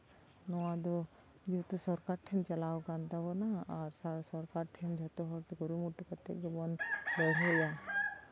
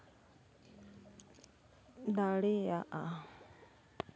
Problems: background sounds at intervals, background conversations at intervals